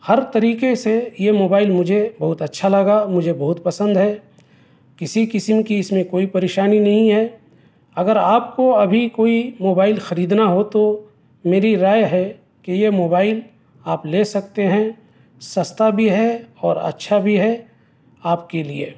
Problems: none marked